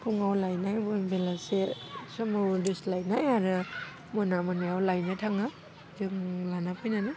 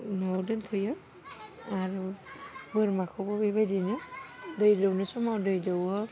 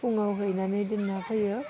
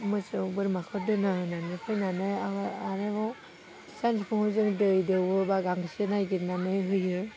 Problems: none marked